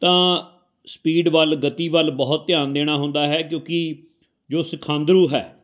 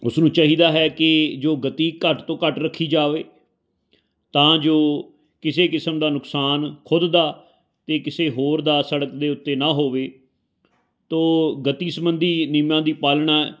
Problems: continuous background conversations